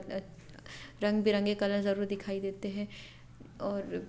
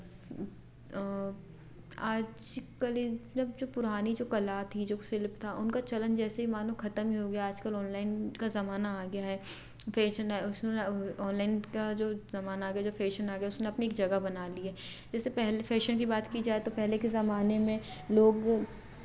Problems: none marked